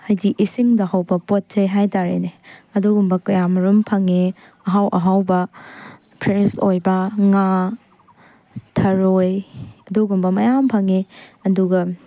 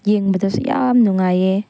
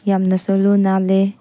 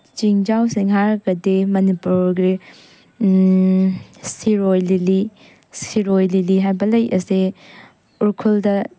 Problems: background sounds at intervals